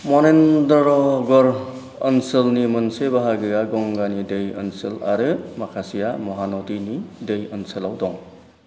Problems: none marked